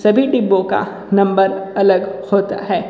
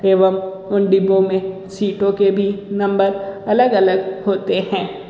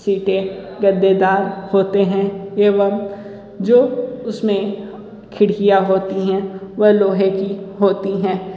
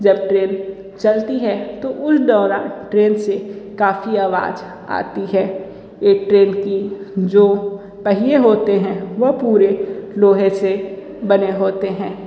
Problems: constant background noise, echo